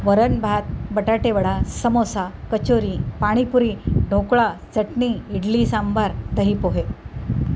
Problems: none marked